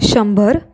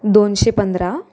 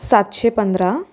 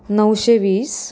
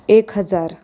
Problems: constant background noise